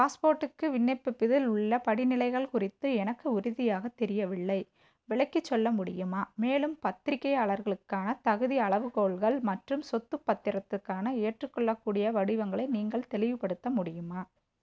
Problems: low volume